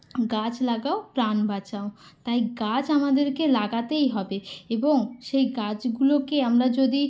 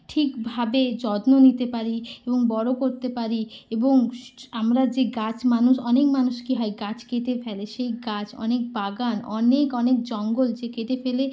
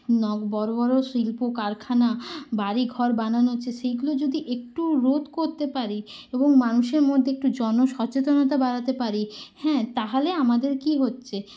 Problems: none marked